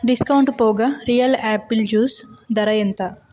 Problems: constant background noise